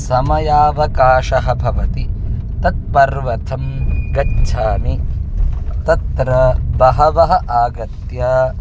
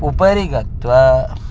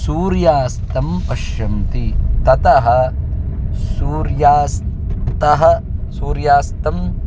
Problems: constant background noise, background conversations at intervals